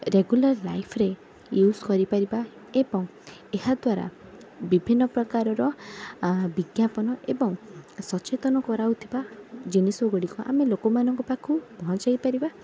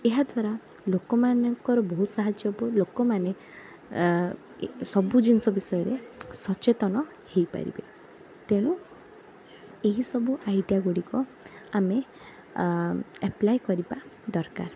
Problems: background sounds at intervals, background conversations at intervals